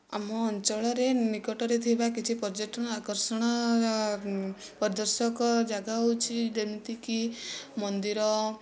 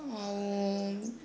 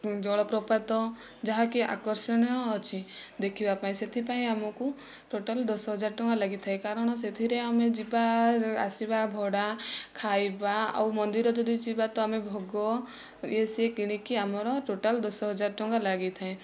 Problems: none marked